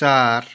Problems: background conversations at intervals